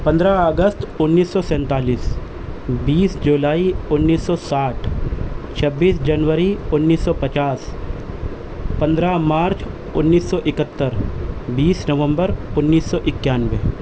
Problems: constant background noise